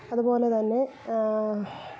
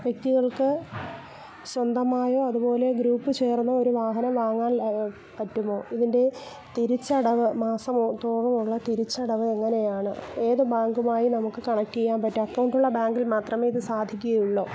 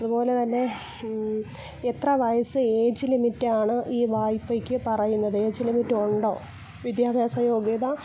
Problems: continuous background conversations